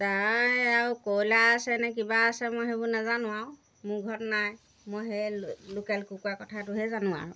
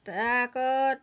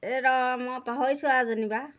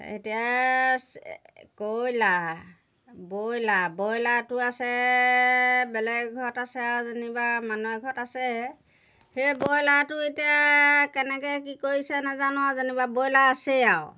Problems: background sounds at intervals